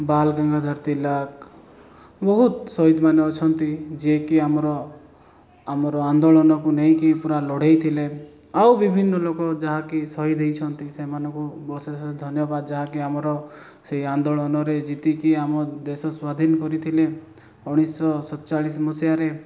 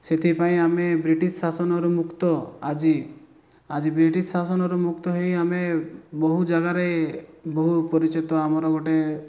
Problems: background sounds at intervals